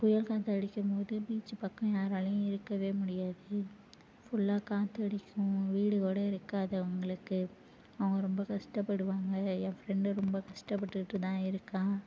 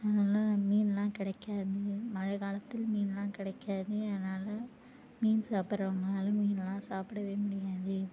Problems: low volume